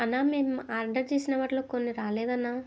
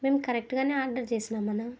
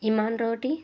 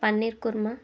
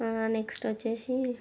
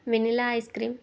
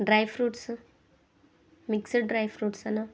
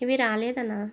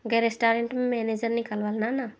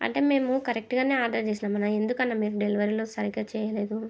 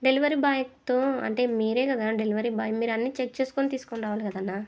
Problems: none marked